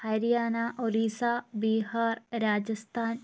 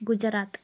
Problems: constant background noise